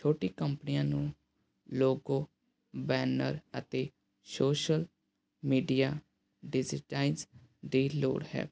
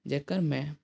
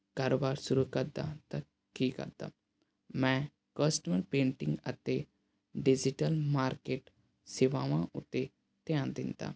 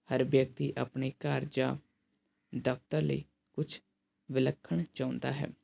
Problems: background sounds at intervals